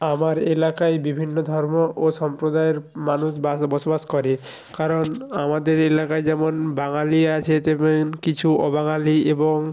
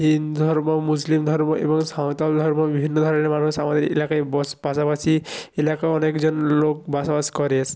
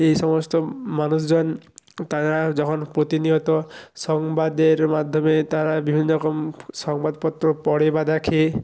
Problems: background sounds at intervals